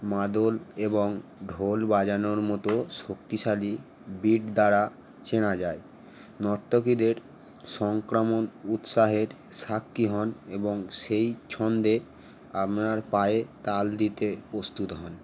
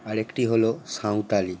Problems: none marked